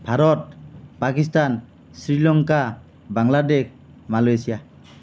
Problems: none marked